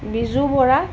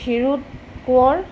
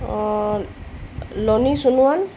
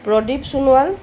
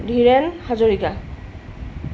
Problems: constant background noise